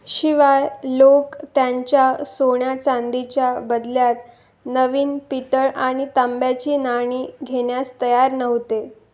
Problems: none marked